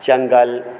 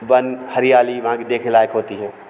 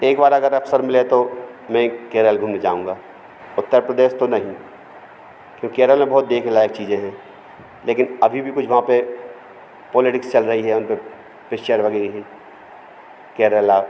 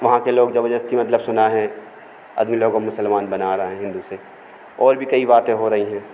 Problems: none marked